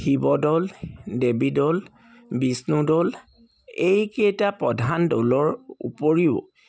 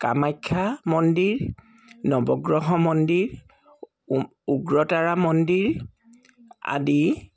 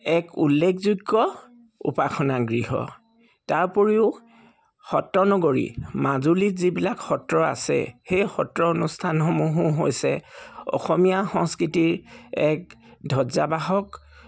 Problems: background sounds at intervals